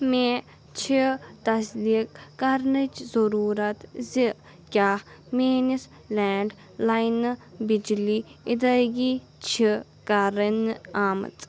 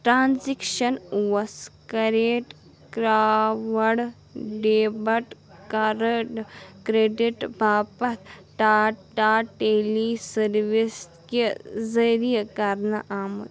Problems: continuous background conversations